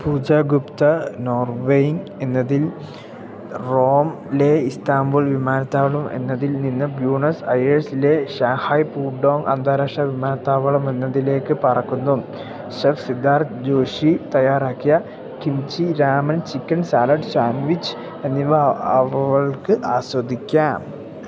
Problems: none marked